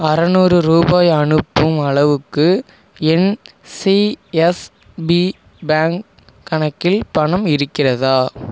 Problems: none marked